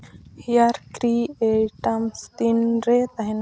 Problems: constant background noise